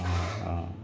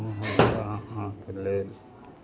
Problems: constant background noise